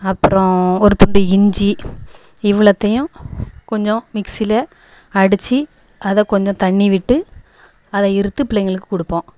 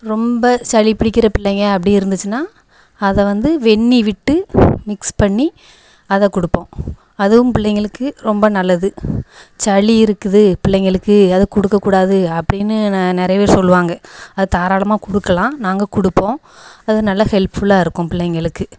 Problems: echo